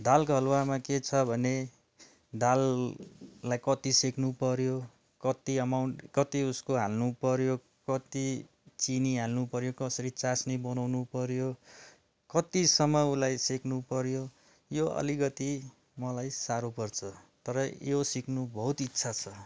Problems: none marked